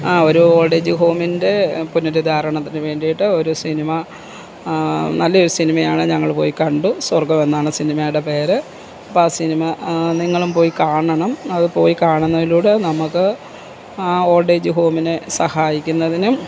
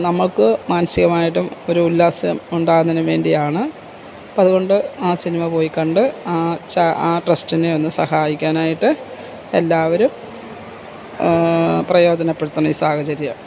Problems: constant background noise